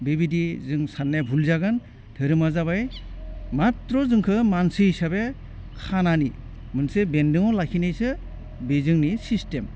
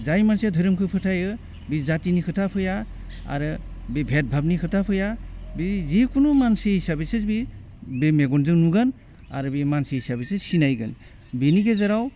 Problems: constant background noise